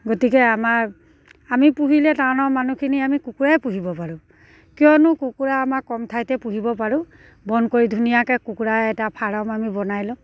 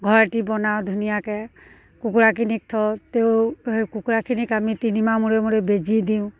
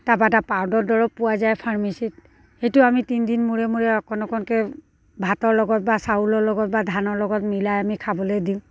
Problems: none marked